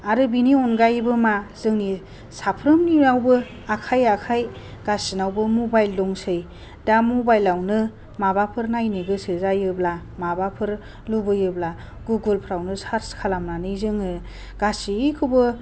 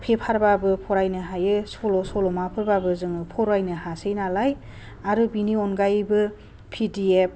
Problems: low volume